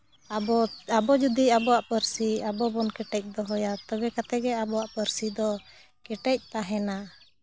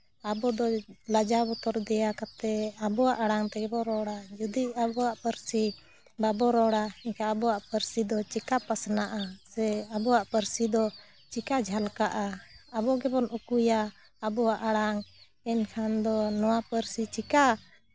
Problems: none marked